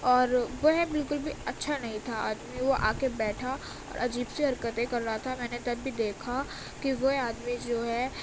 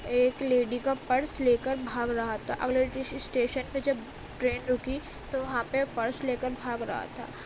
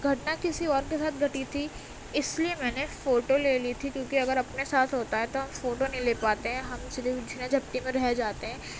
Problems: constant background noise